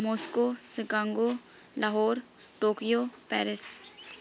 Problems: background sounds at intervals